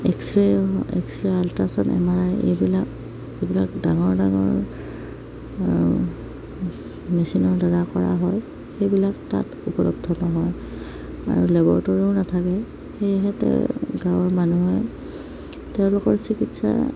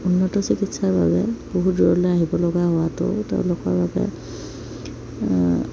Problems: none marked